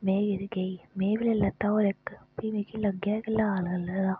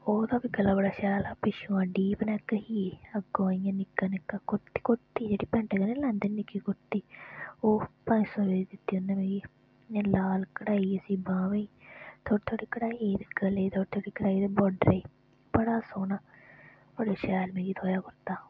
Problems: background sounds at intervals